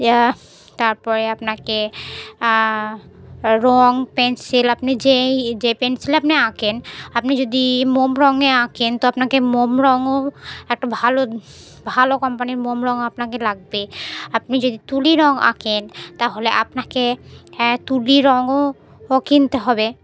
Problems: none marked